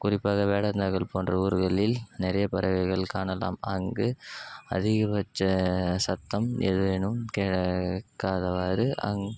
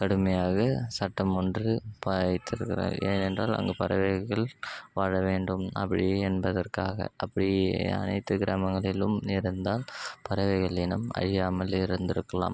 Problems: constant background noise